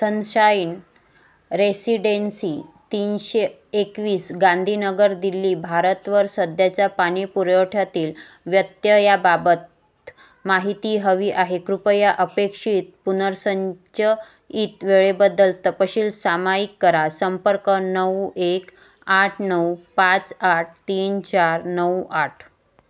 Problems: none marked